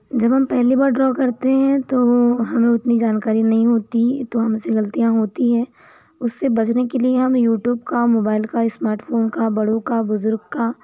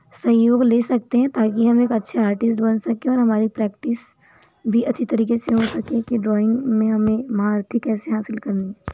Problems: constant background noise